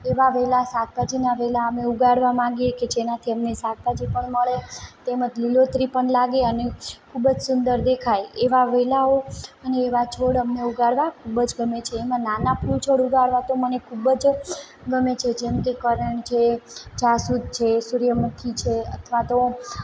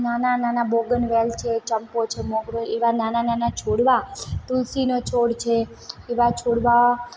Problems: background sounds at intervals